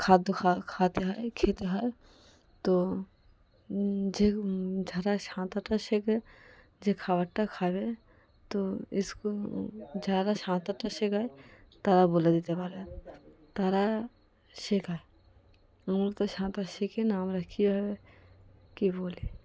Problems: background sounds at intervals, background conversations at intervals